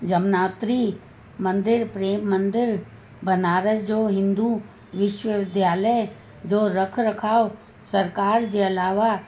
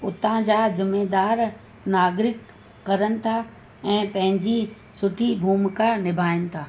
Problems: constant background noise, echo